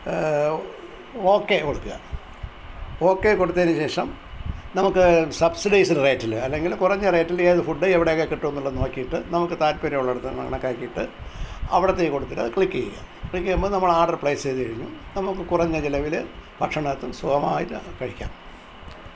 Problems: constant background noise